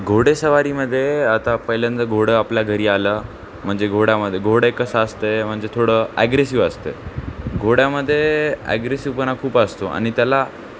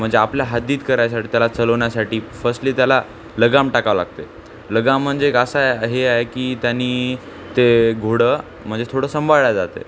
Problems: constant background noise